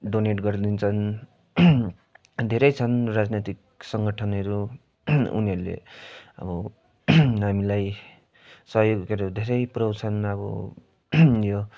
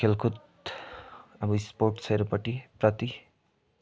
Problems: none marked